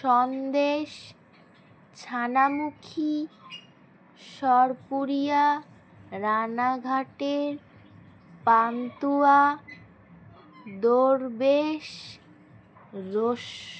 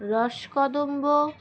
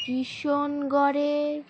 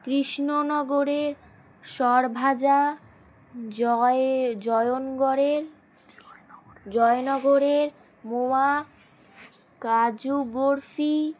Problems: constant background noise